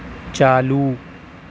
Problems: none marked